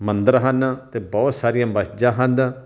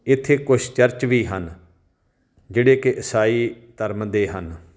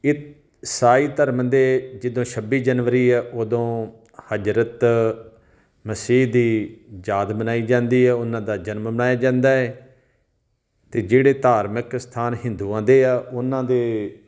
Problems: background sounds at intervals